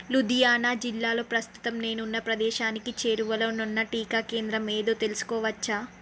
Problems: constant background noise